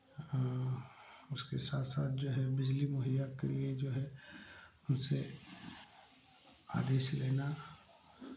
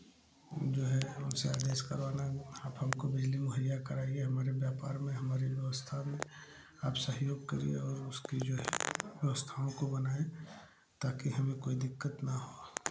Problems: none marked